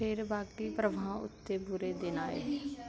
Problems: background conversations at intervals